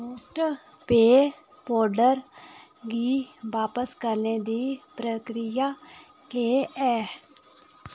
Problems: none marked